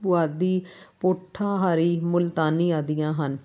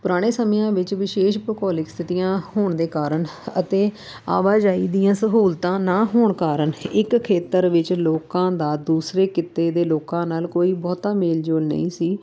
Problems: none marked